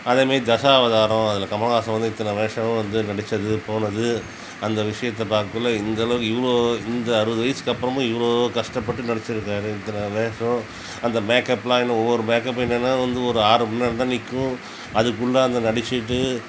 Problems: constant background noise